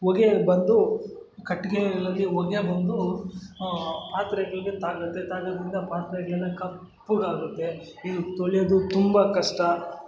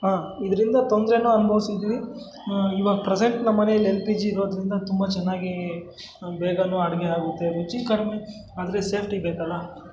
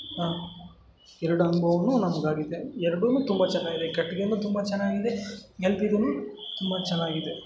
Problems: background sounds at intervals, background conversations at intervals